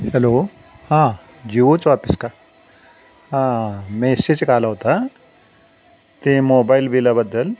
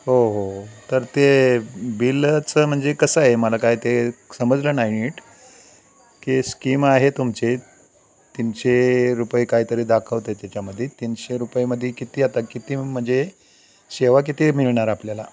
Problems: constant background noise, background conversations at intervals